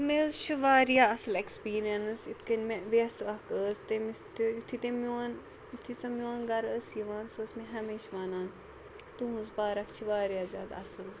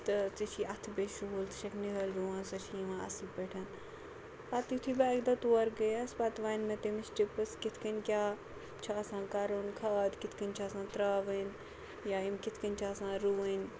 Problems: none marked